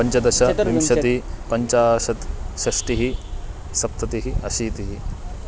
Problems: constant background noise